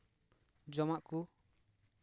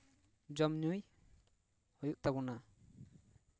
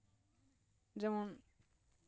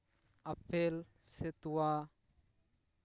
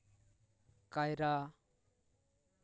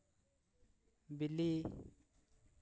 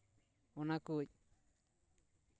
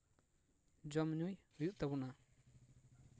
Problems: low volume